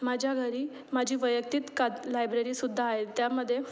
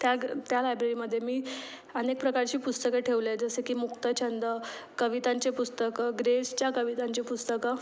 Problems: constant background noise, background conversations at intervals